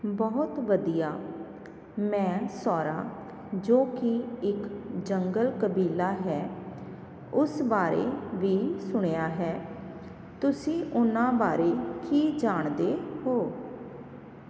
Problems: constant background noise